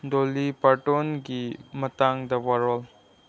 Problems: none marked